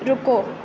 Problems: constant background noise, low volume